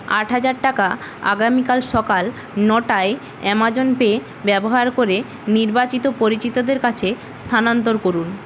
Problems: constant background noise